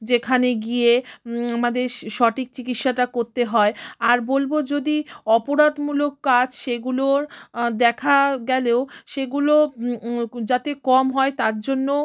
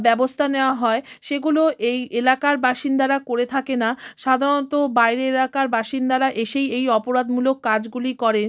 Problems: constant background noise